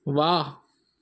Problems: none marked